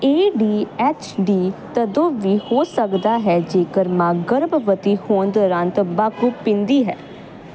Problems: constant background noise